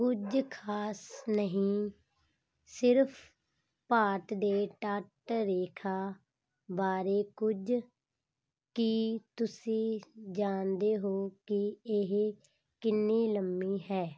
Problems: background sounds at intervals